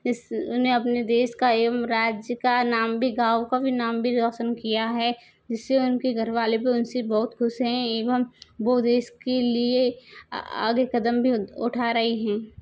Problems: none marked